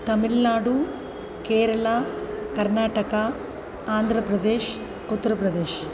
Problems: constant background noise